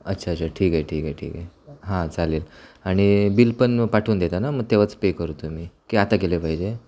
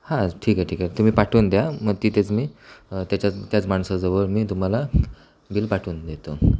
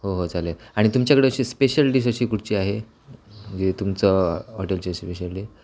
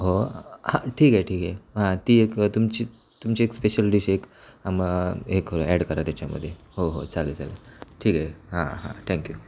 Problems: background sounds at intervals